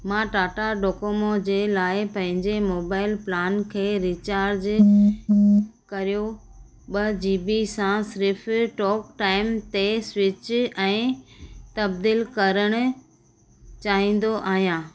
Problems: constant background noise